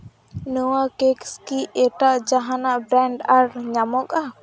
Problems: background sounds at intervals